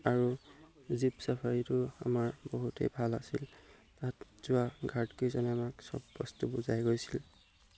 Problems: background sounds at intervals